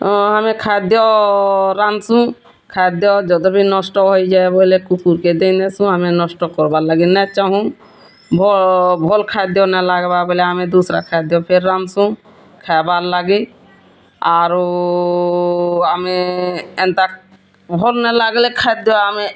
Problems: constant background noise